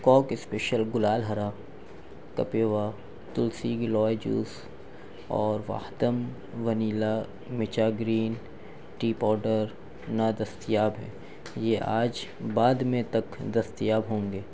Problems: none marked